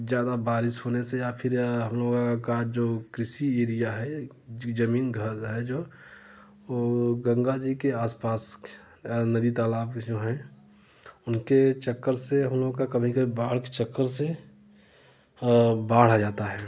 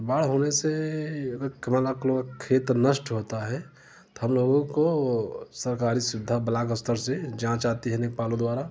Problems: none marked